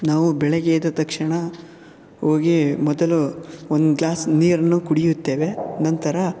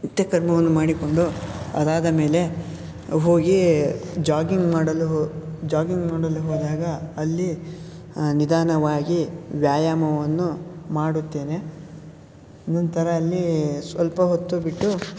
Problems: none marked